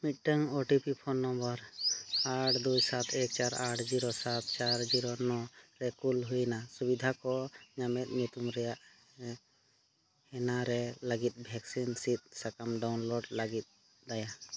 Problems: background sounds at intervals